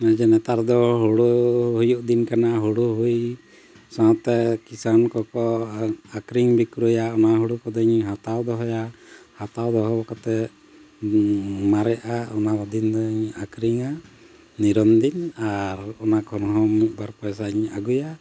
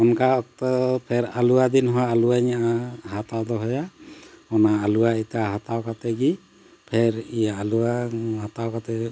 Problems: constant background noise